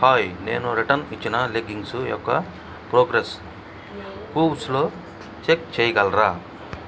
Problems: background conversations at intervals